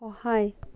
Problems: none marked